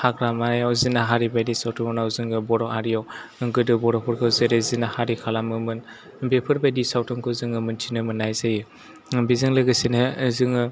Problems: background sounds at intervals